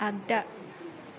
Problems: background sounds at intervals